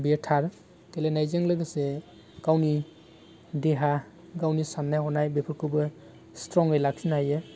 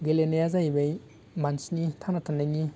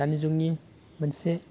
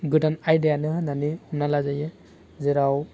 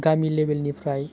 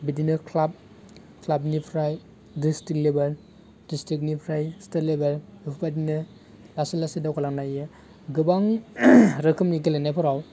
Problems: constant background noise